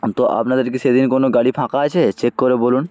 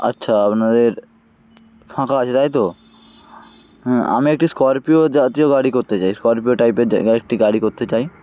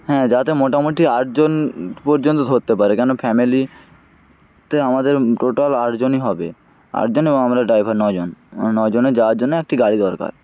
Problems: none marked